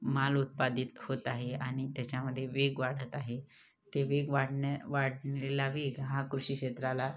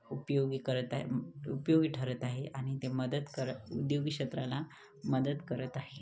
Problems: constant background noise, background conversations at intervals